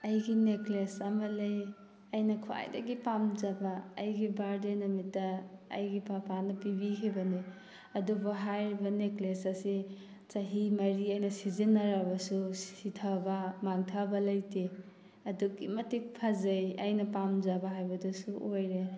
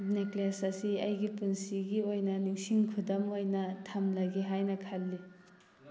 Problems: background sounds at intervals